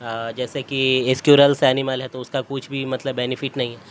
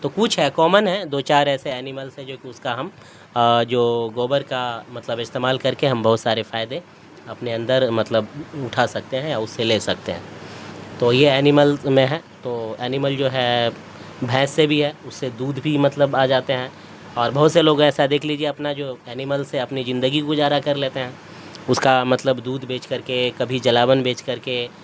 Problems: constant background noise